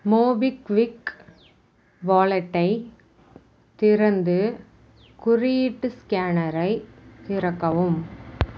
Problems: none marked